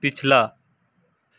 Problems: constant background noise